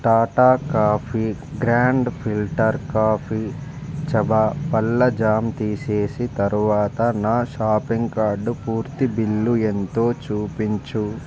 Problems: constant background noise